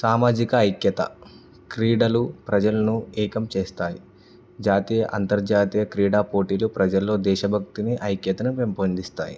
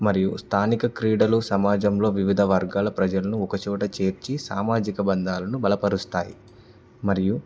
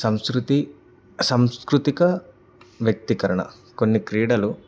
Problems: background sounds at intervals